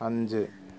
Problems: low volume